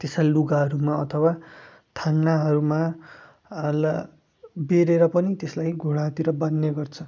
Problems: background sounds at intervals